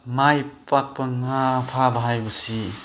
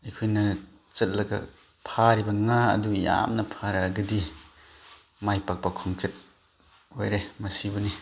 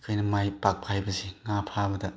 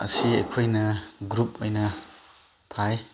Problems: background sounds at intervals, background conversations at intervals